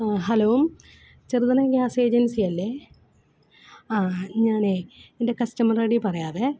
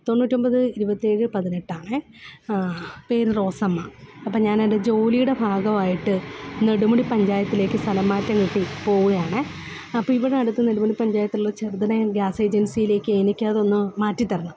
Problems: background sounds at intervals